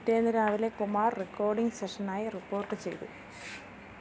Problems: low volume